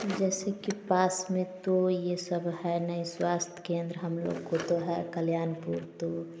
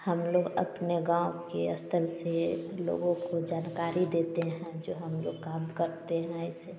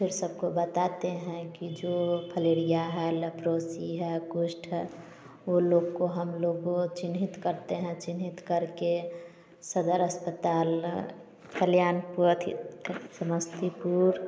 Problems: background sounds at intervals